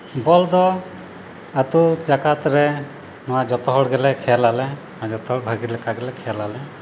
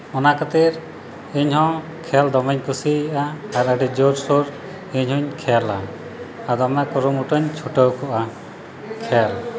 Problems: none marked